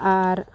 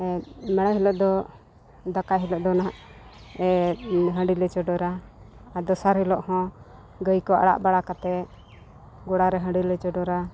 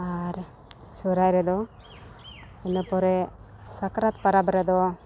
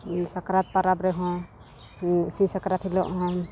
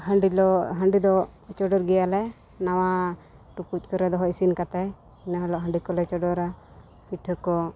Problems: background sounds at intervals, background conversations at intervals